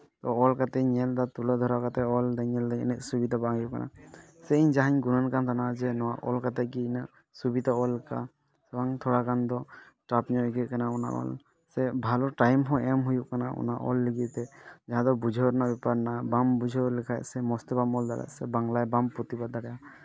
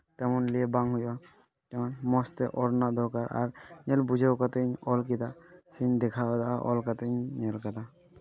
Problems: background conversations at intervals